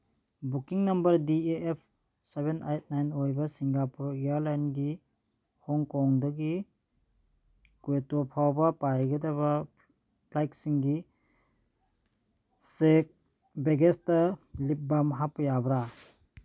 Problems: background sounds at intervals, background conversations at intervals